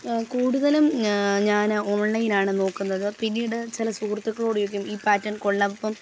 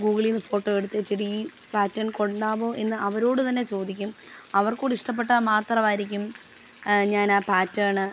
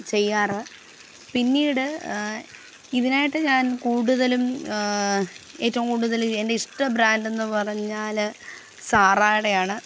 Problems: constant background noise